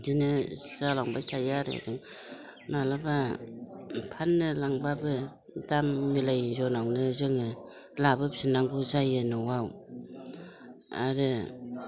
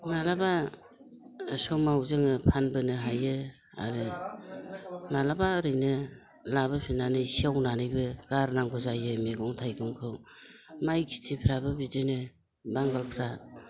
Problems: constant background noise